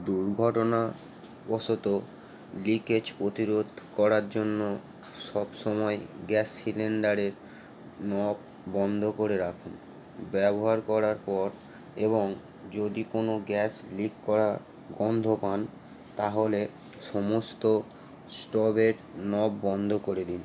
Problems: none marked